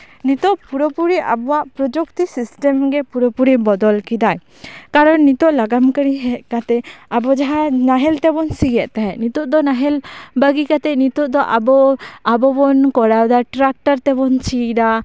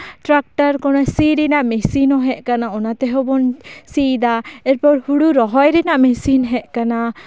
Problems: background conversations at intervals